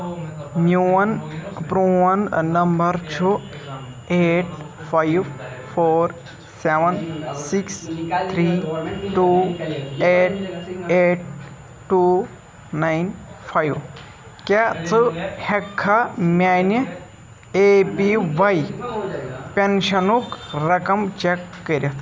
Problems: constant background noise, continuous background conversations